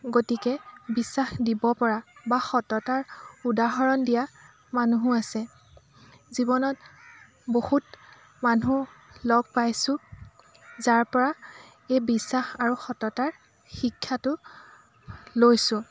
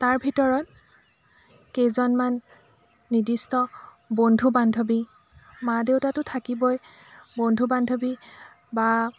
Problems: constant background noise, continuous background conversations